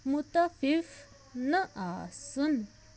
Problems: background sounds at intervals